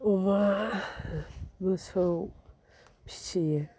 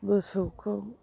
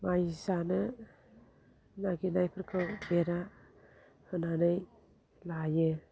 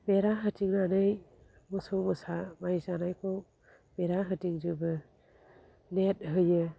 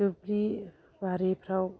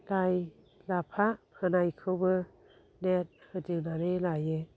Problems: low volume